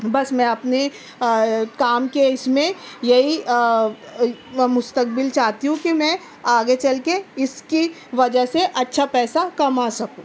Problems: none marked